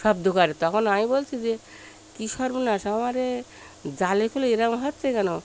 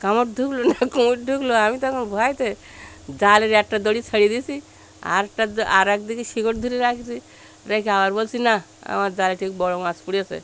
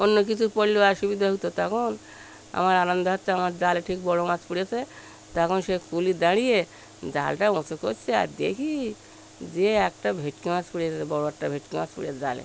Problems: constant background noise